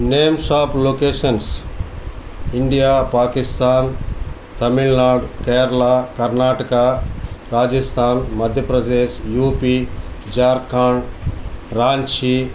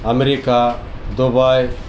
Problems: background sounds at intervals